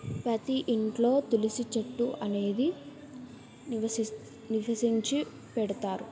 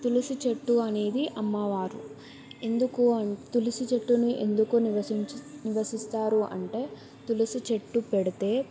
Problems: background sounds at intervals